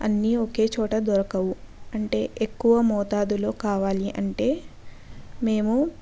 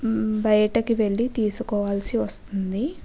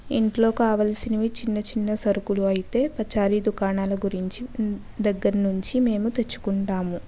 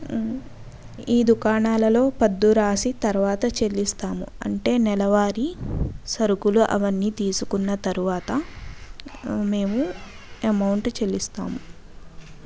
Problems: background sounds at intervals